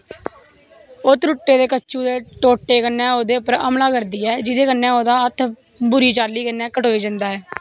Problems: background sounds at intervals